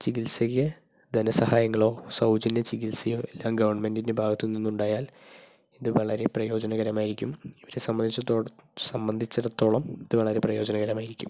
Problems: low volume